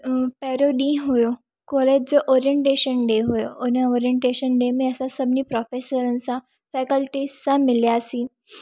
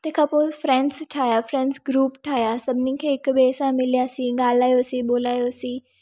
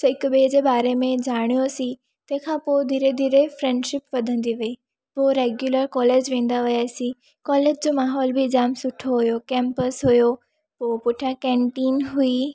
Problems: none marked